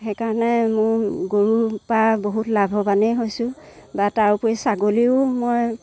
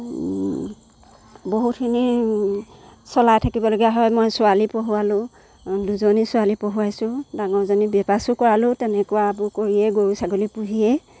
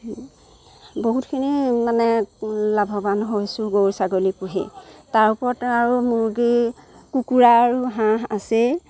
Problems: background sounds at intervals